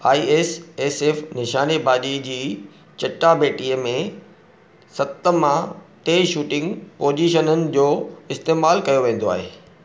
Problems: none marked